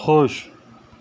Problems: none marked